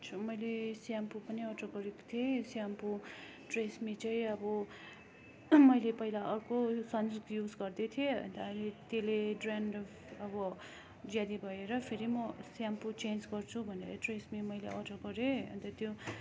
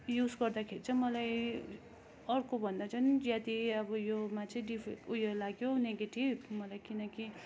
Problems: constant background noise